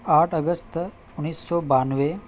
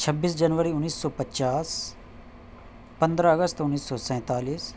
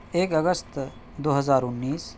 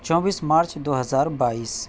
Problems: background sounds at intervals